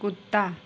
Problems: none marked